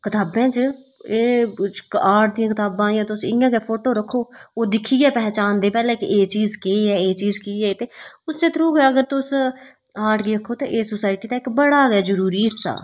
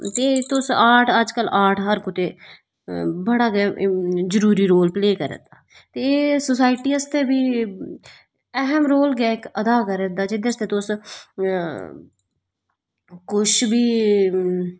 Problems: constant background noise